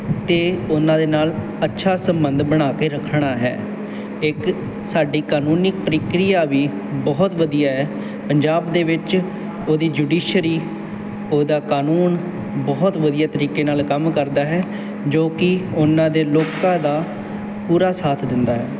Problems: none marked